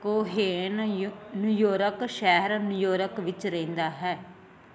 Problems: constant background noise